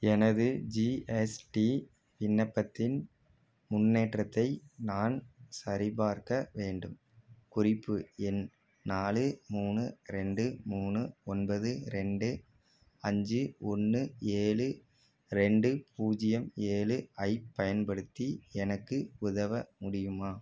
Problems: none marked